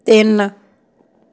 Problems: none marked